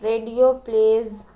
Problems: constant background noise